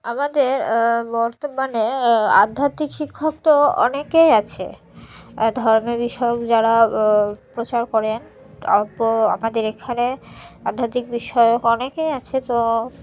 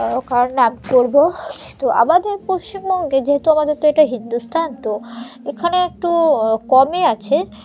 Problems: background sounds at intervals